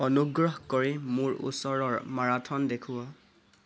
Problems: none marked